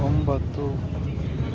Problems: constant background noise